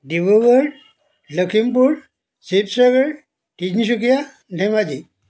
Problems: background sounds at intervals